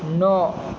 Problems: none marked